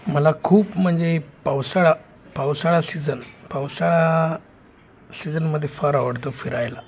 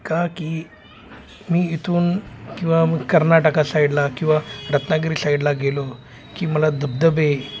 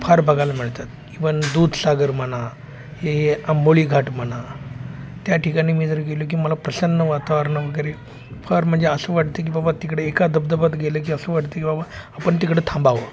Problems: constant background noise, background conversations at intervals